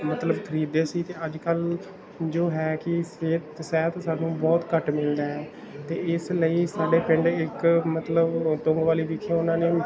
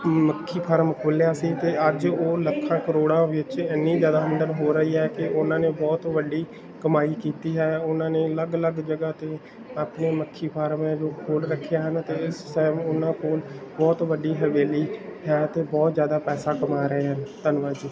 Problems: background sounds at intervals, background conversations at intervals